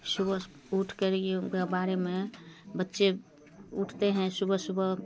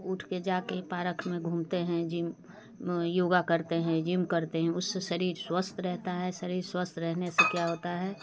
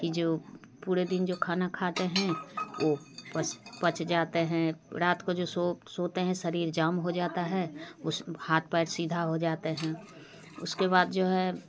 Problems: constant background noise, background conversations at intervals